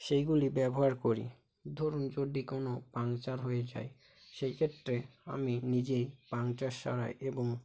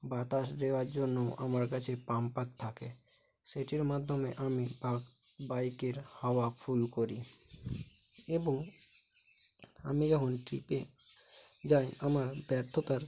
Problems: constant background noise, low volume